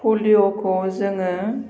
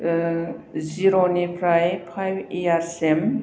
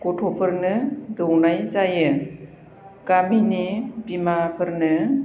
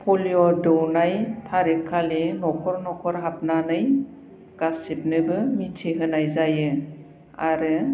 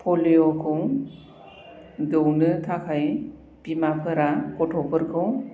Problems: constant background noise